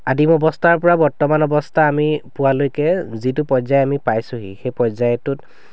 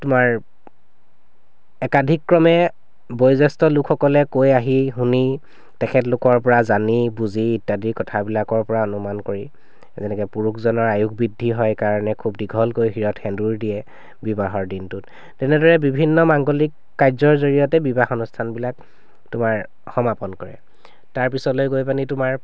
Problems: none marked